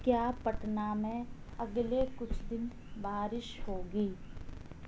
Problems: low volume